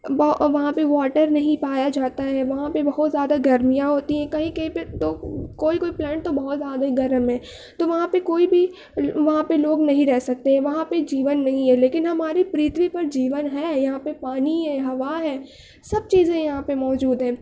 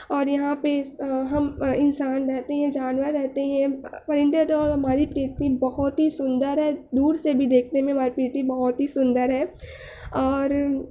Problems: none marked